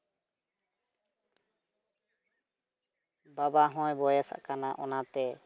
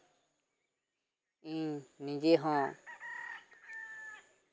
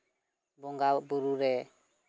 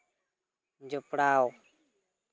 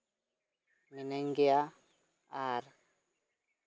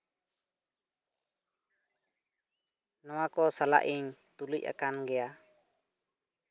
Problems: none marked